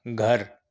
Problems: none marked